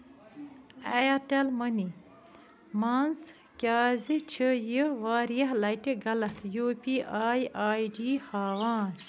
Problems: background sounds at intervals